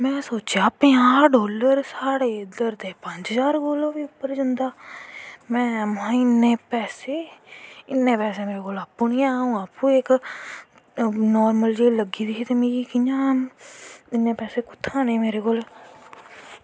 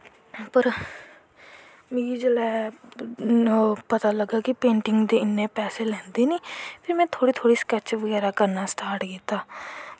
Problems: none marked